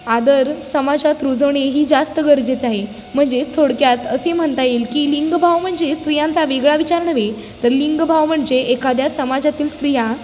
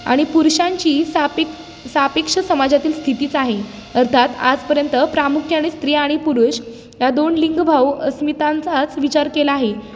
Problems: background sounds at intervals